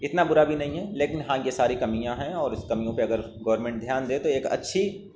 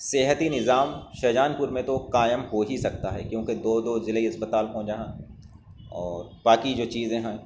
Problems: none marked